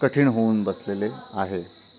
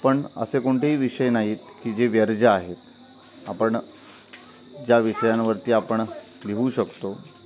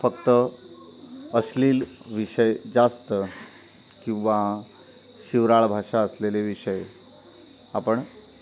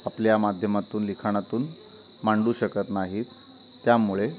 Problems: constant background noise, continuous background conversations